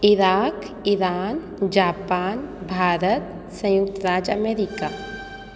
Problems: constant background noise, echo